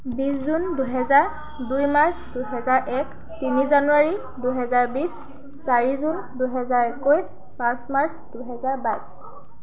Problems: continuous background conversations